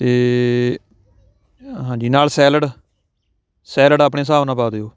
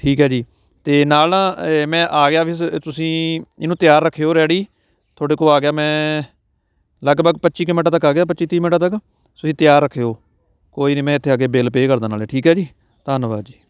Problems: constant background noise, background conversations at intervals